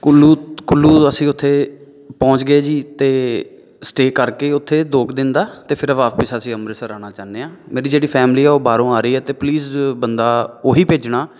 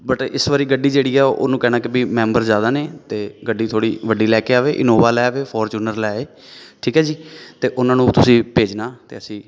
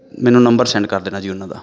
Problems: background sounds at intervals